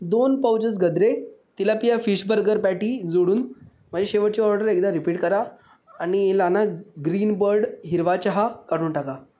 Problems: none marked